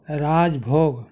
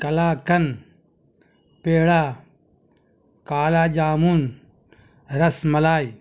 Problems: none marked